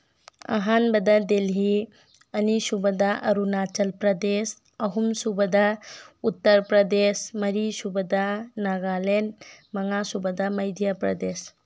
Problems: background sounds at intervals